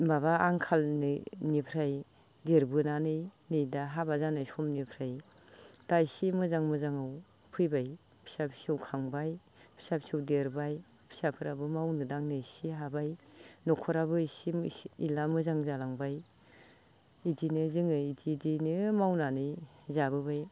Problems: constant background noise